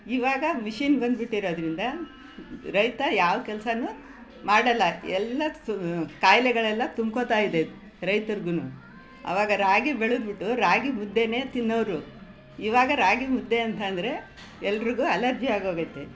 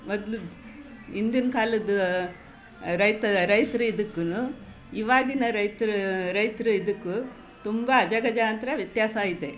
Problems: none marked